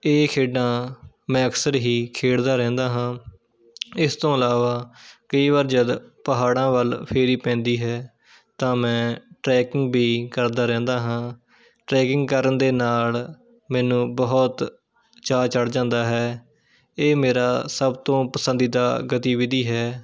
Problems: background sounds at intervals, background conversations at intervals